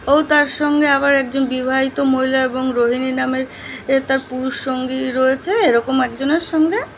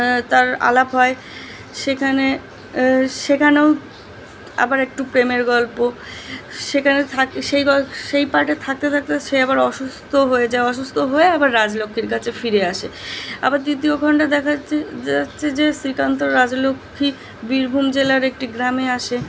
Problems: constant background noise